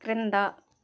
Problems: constant background noise